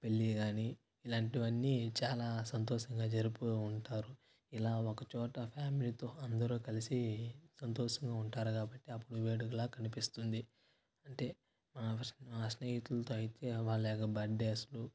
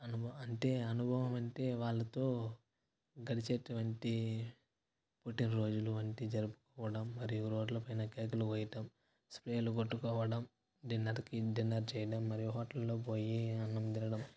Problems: constant background noise